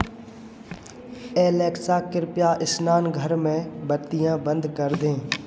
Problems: none marked